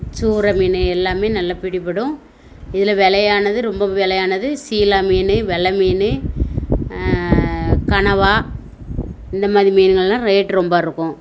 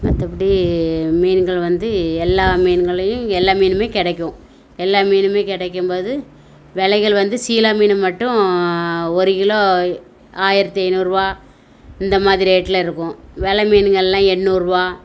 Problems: background sounds at intervals